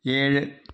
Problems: none marked